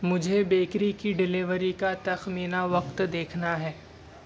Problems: constant background noise